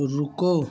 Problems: constant background noise